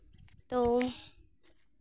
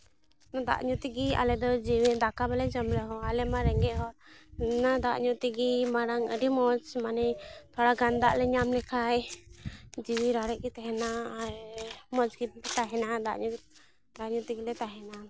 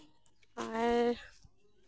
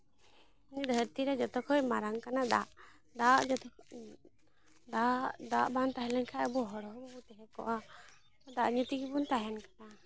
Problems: background sounds at intervals